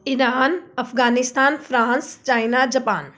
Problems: background sounds at intervals